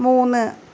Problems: constant background noise